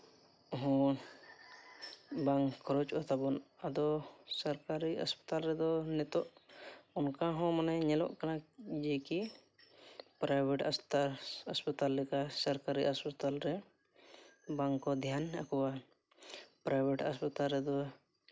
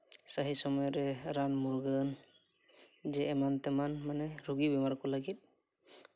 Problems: none marked